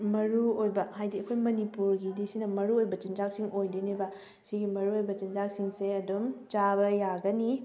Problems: background sounds at intervals